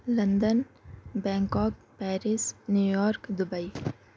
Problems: background sounds at intervals